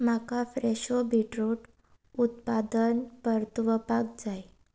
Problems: none marked